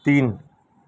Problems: none marked